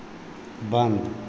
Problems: constant background noise